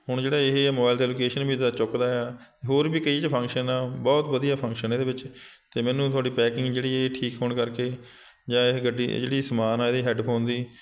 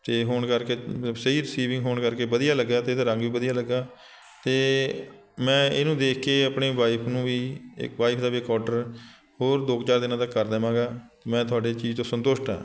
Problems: continuous background conversations